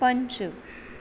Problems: constant background noise